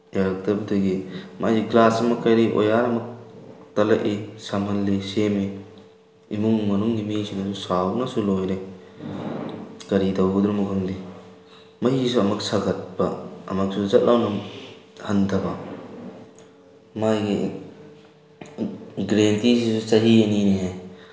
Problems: background sounds at intervals